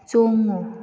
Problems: low volume